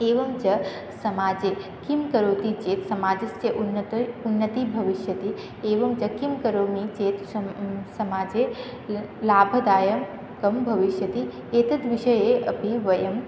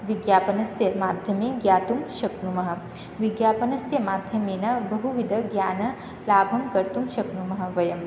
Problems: none marked